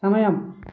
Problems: constant background noise